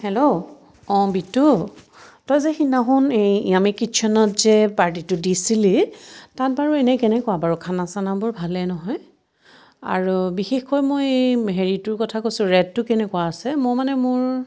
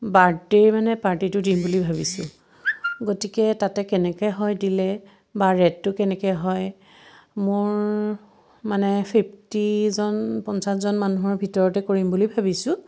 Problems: none marked